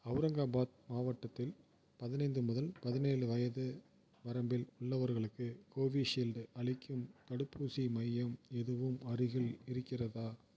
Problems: none marked